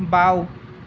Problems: none marked